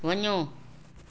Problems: constant background noise, echo